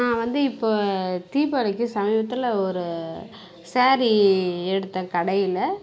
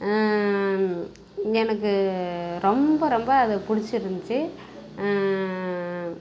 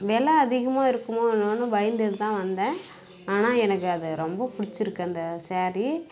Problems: none marked